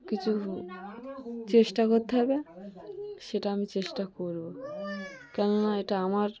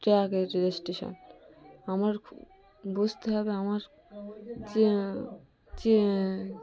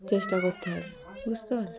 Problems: continuous background conversations